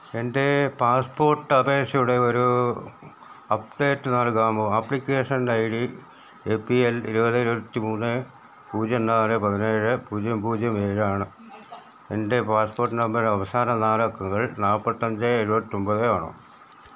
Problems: none marked